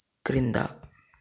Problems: low volume